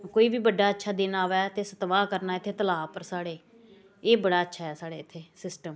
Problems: constant background noise